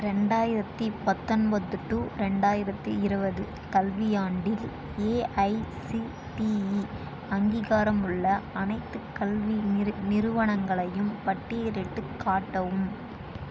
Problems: constant background noise